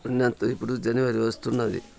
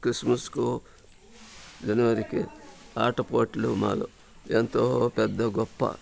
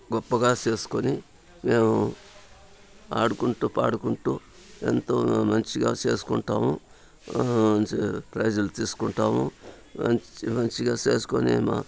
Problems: constant background noise, background conversations at intervals